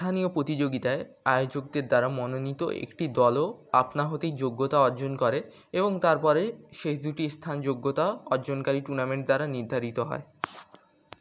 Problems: none marked